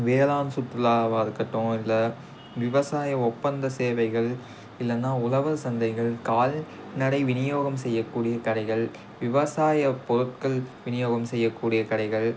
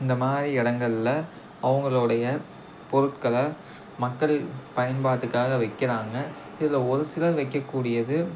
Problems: none marked